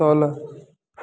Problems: background sounds at intervals